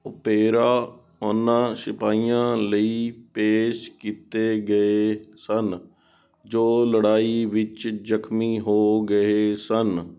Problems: background sounds at intervals